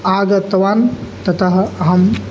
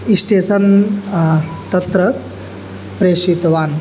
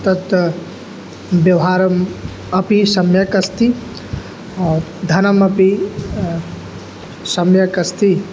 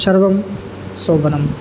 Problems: none marked